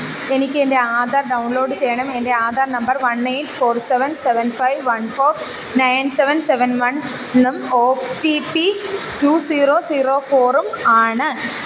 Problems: constant background noise